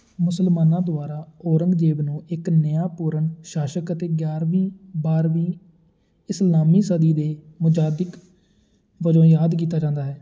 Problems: none marked